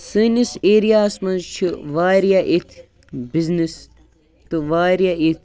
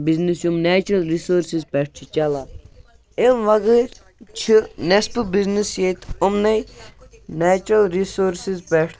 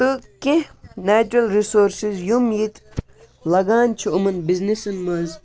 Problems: background conversations at intervals